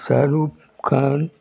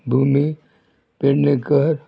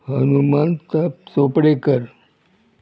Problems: none marked